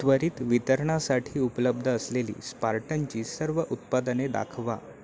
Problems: constant background noise, continuous background conversations